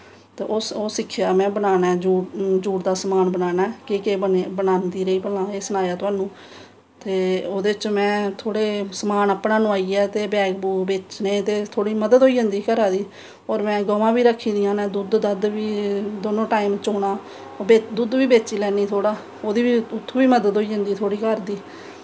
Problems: none marked